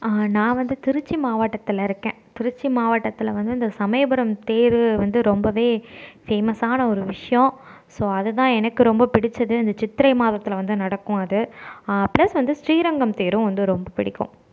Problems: none marked